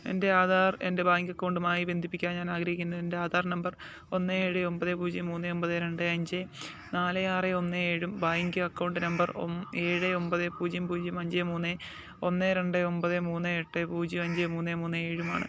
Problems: none marked